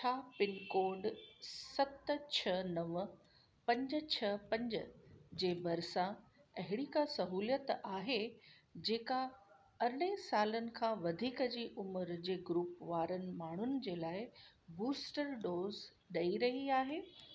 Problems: constant background noise